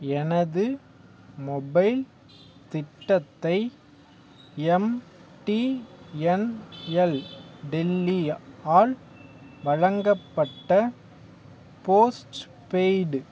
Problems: background sounds at intervals